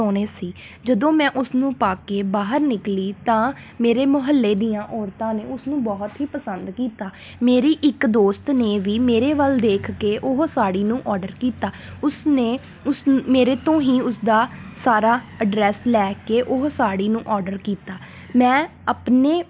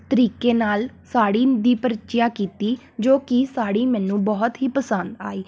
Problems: constant background noise